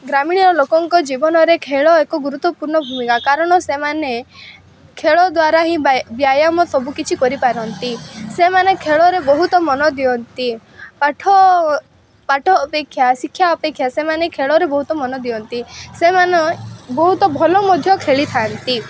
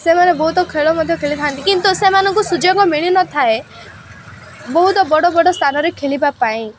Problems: constant background noise